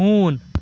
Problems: constant background noise, continuous background conversations